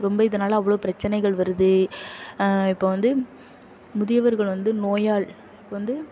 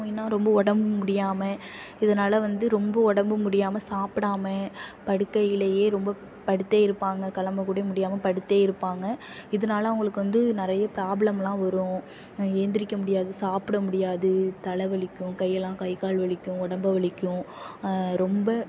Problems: none marked